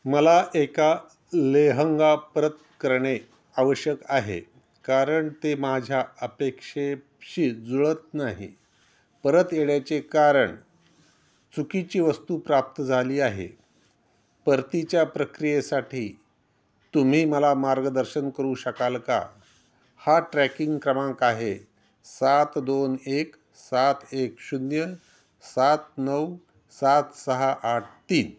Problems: none marked